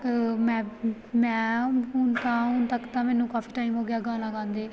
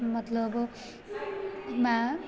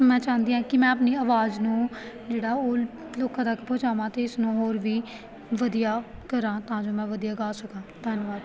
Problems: background conversations at intervals